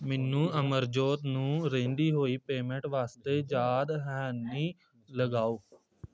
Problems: background sounds at intervals, background conversations at intervals